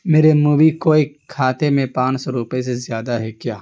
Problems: constant background noise